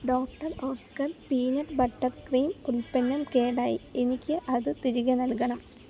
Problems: low volume